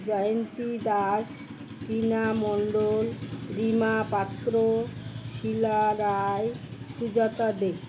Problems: constant background noise